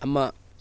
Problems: none marked